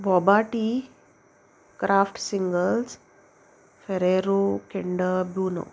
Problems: none marked